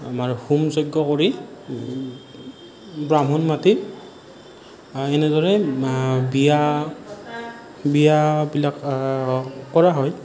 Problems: none marked